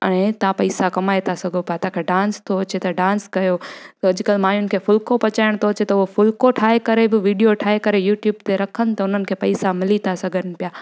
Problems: none marked